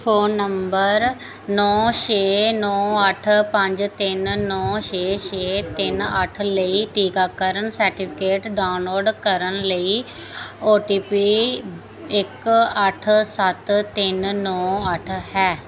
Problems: background sounds at intervals